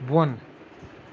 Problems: none marked